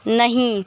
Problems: constant background noise, background conversations at intervals